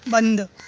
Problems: constant background noise